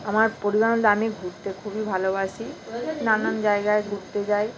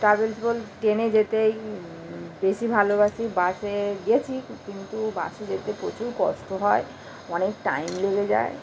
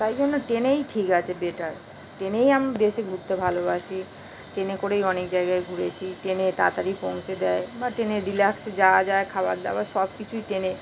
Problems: constant background noise